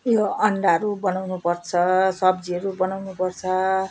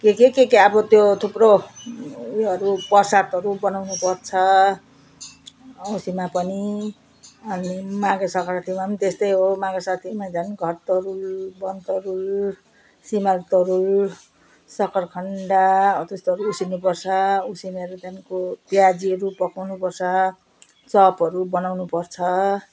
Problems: none marked